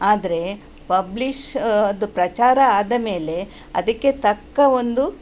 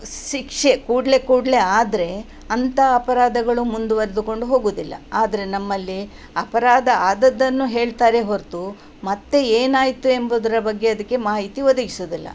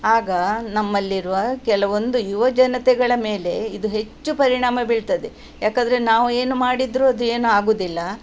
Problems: none marked